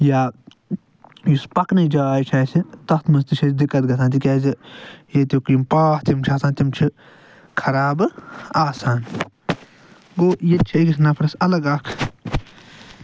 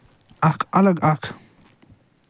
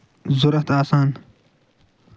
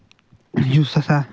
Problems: none marked